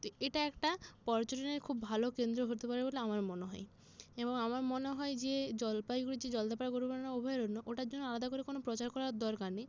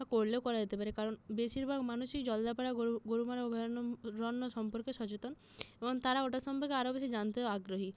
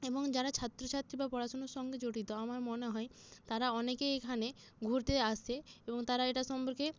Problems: none marked